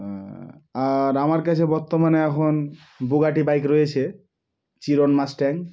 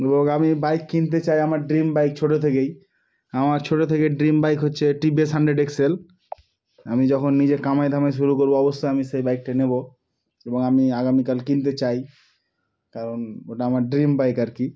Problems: none marked